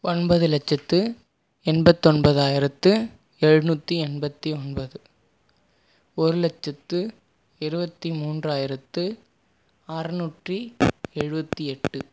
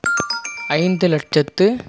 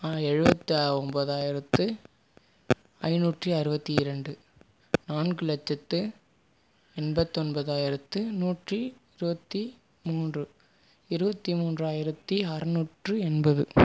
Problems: none marked